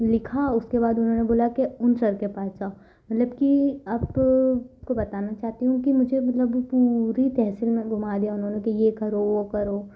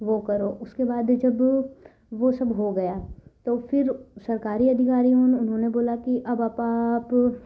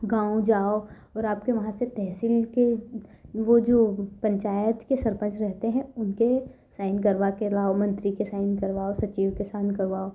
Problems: none marked